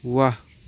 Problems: none marked